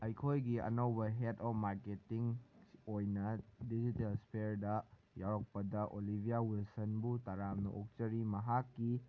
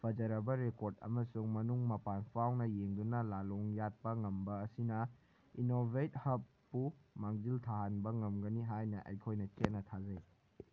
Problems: none marked